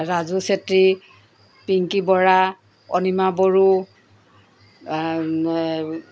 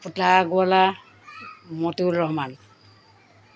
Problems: background sounds at intervals